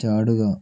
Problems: none marked